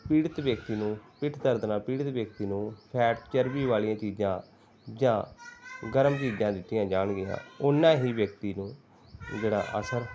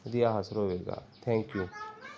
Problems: background sounds at intervals, background conversations at intervals